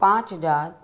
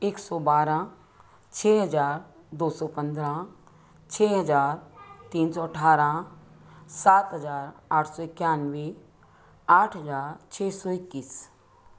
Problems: none marked